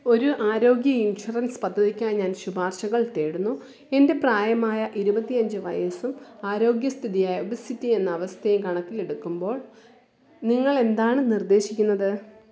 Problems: background sounds at intervals